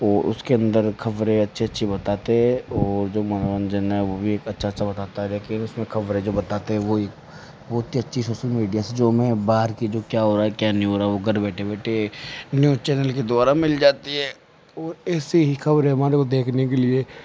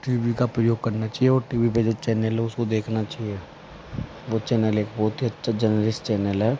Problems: constant background noise